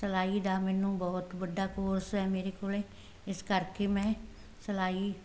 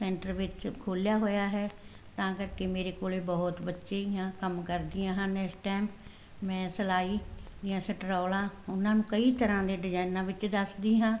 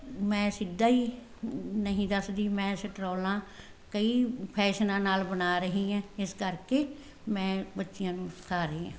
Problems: none marked